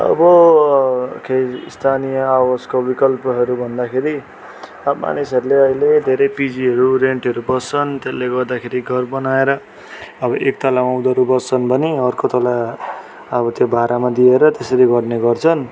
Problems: constant background noise